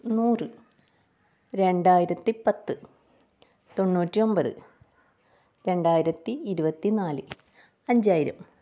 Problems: low volume